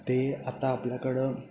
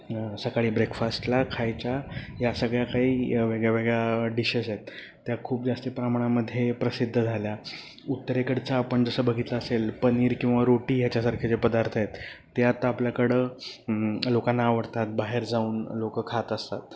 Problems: constant background noise